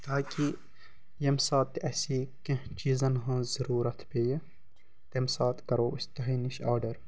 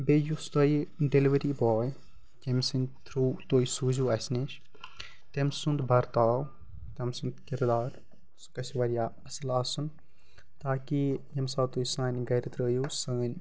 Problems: constant background noise